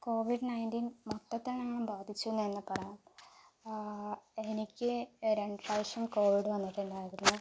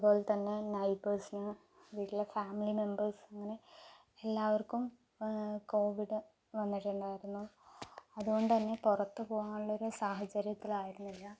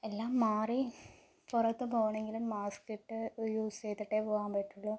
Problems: low volume